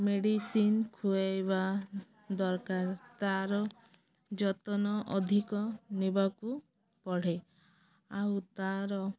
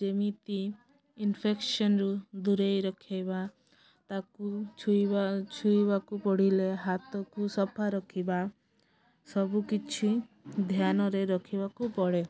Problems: none marked